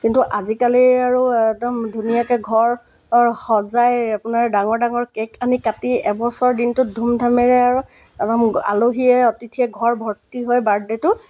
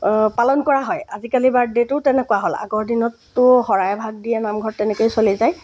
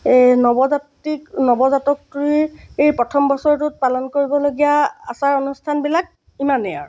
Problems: background sounds at intervals